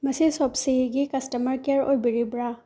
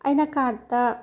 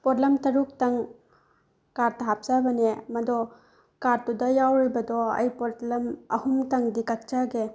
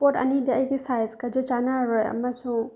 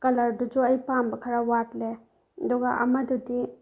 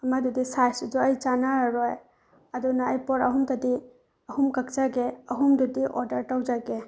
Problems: none marked